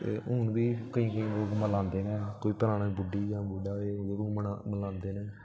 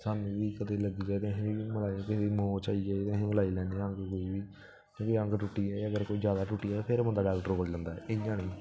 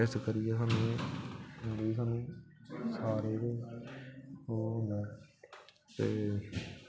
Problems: background sounds at intervals